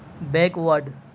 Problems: none marked